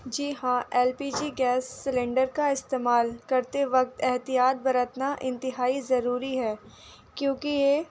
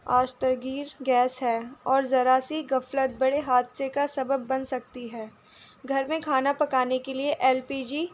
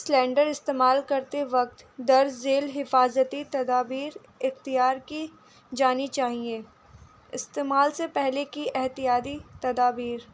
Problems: constant background noise